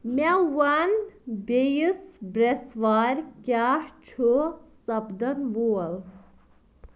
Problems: background sounds at intervals